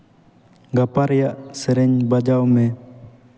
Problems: echo